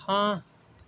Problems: background sounds at intervals